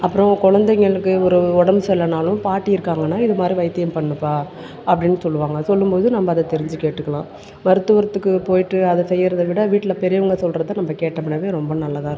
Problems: background sounds at intervals